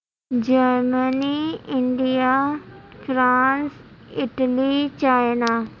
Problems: constant background noise